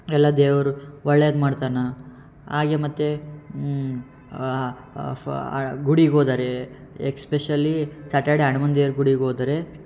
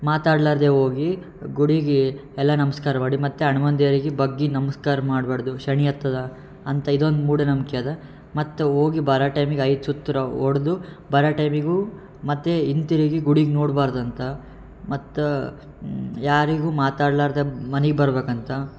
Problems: none marked